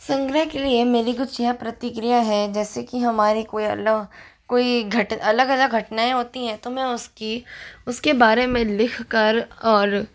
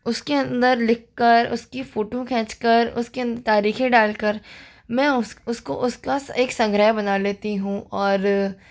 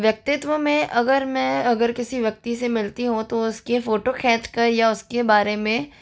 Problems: none marked